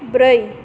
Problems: constant background noise